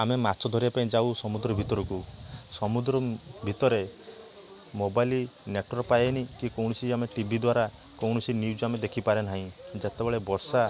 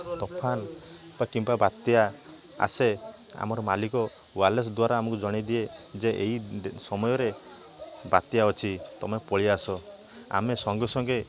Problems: constant background noise